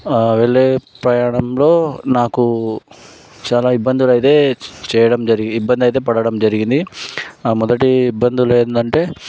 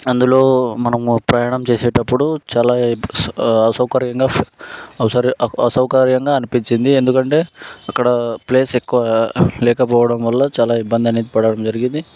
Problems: background sounds at intervals